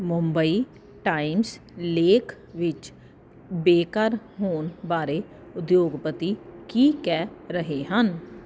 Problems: none marked